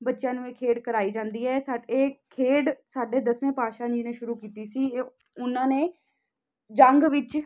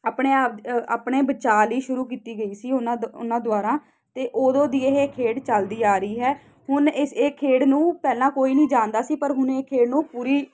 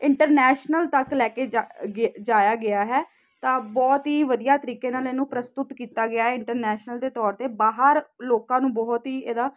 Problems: constant background noise